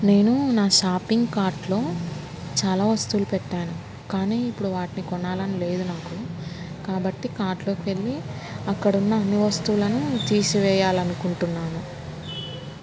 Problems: constant background noise